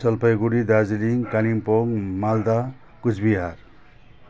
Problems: constant background noise